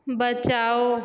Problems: echo